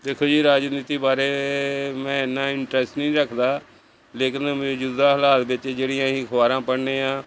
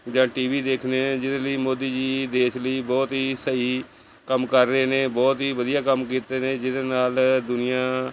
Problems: constant background noise